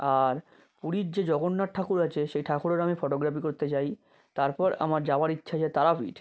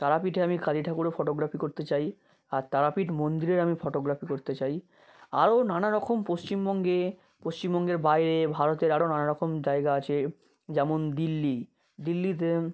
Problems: constant background noise